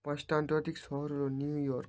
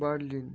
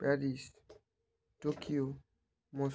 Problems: none marked